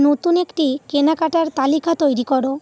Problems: constant background noise